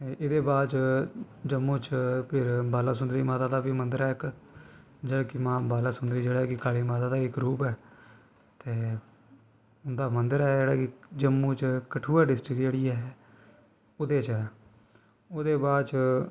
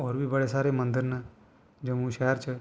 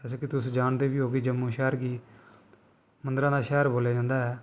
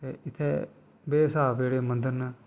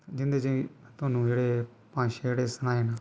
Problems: background sounds at intervals